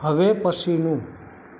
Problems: constant background noise